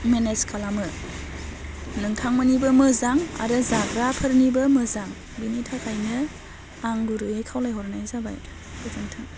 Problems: none marked